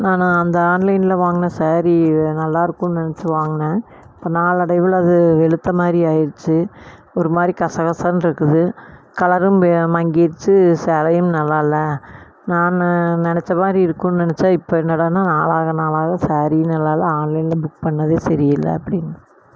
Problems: none marked